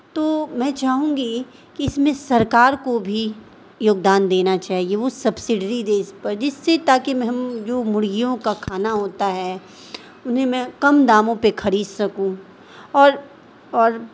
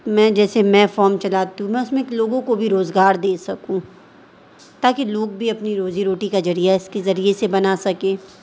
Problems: constant background noise